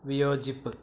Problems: none marked